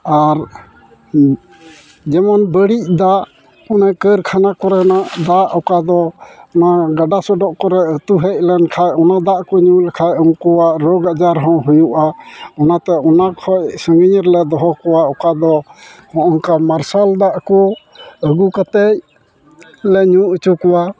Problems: background sounds at intervals, continuous background conversations